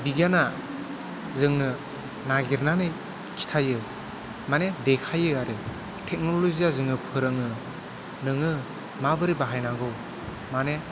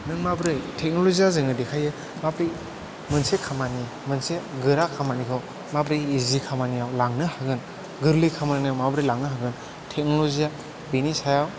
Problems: background conversations at intervals, echo